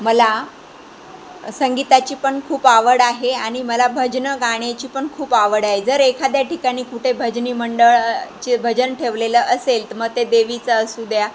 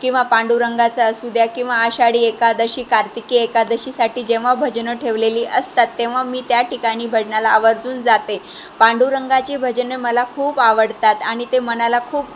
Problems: constant background noise, background conversations at intervals